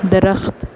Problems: none marked